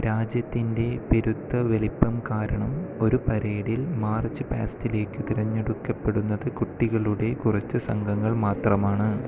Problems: constant background noise